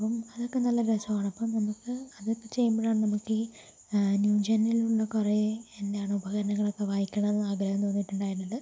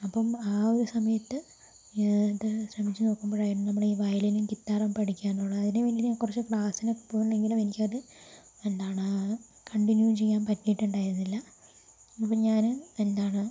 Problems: low volume